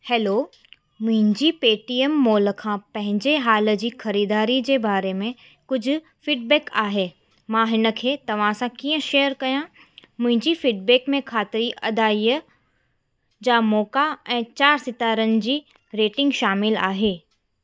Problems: constant background noise